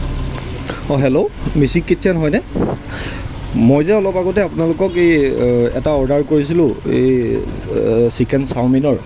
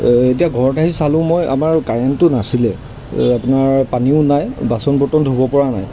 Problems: background sounds at intervals